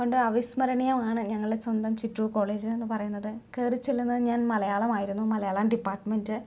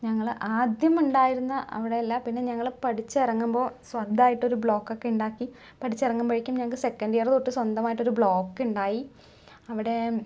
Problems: none marked